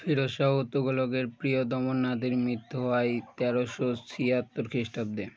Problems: none marked